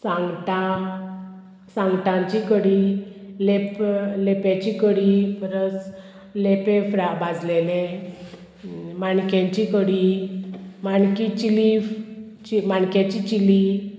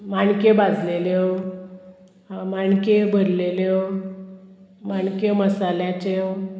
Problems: constant background noise, continuous background conversations